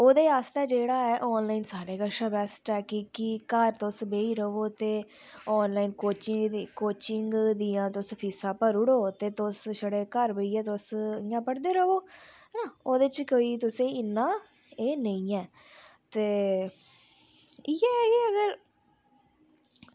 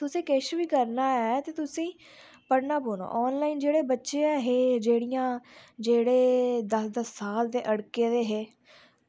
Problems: low volume